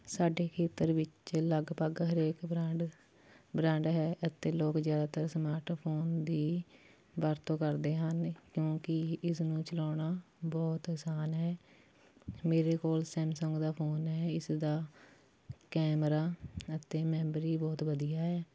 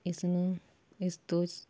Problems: background sounds at intervals